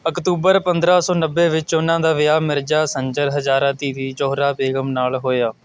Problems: none marked